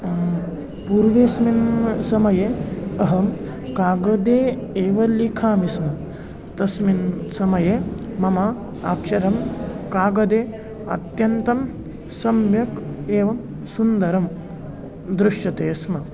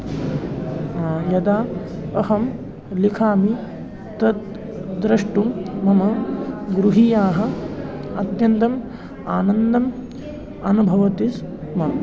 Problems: constant background noise